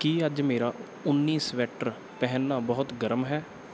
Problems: none marked